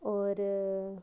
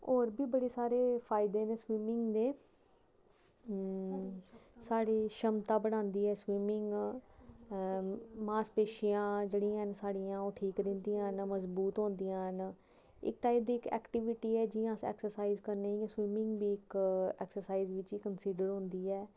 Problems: background sounds at intervals